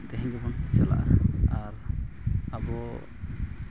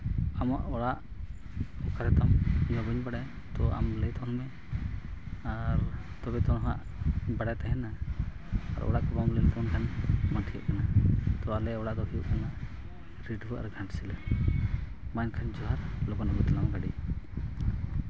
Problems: low volume